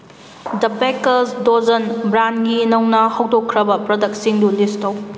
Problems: constant background noise